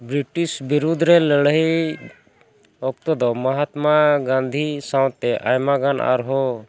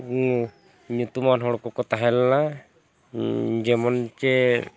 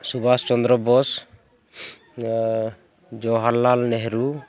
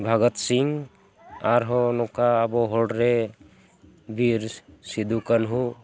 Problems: background sounds at intervals